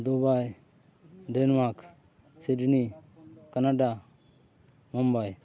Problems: background sounds at intervals, background conversations at intervals